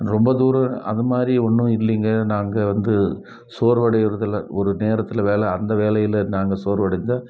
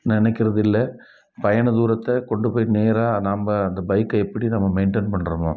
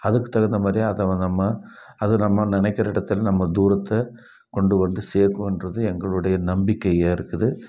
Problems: none marked